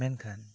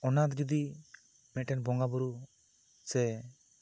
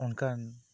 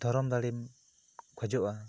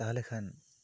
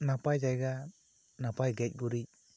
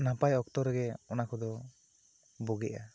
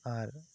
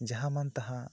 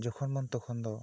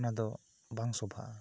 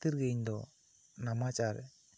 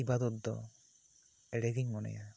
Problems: none marked